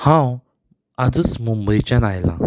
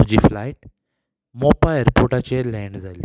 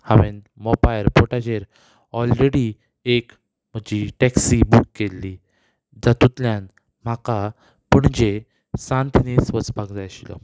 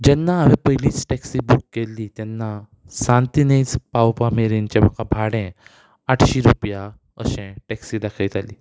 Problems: none marked